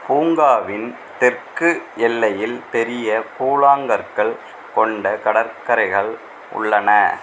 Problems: constant background noise